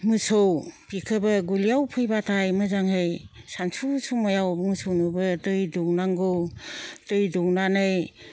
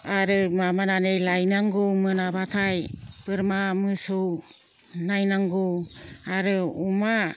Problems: none marked